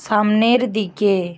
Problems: constant background noise